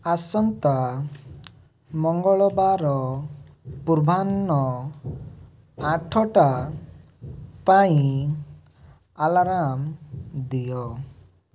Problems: background sounds at intervals